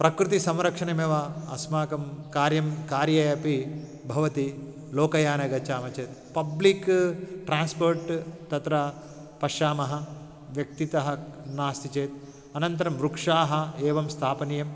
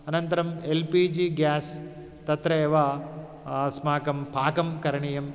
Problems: background sounds at intervals